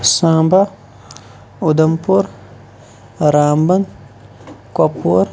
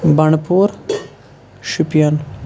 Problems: background sounds at intervals